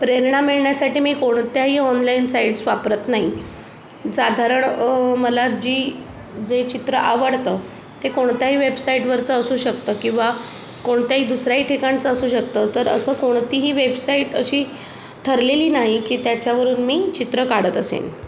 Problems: none marked